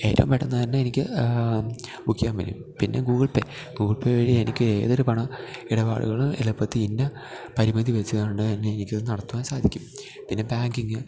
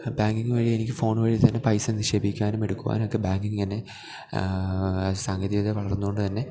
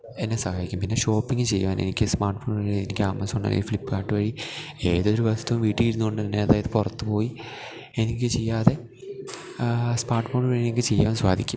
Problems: none marked